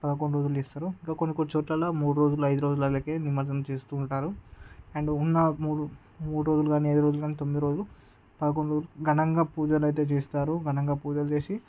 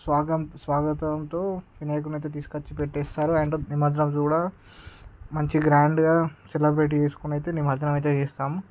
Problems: none marked